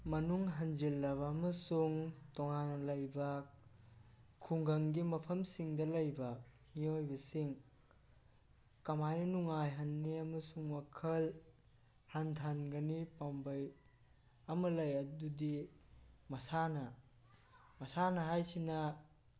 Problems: background conversations at intervals